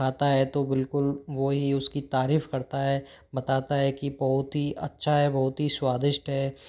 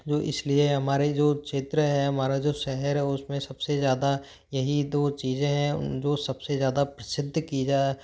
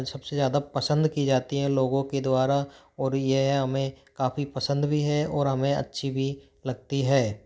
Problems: none marked